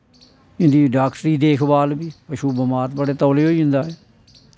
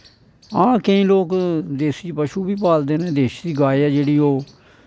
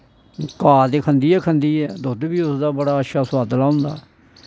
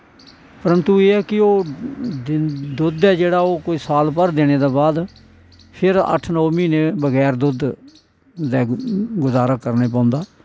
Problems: background sounds at intervals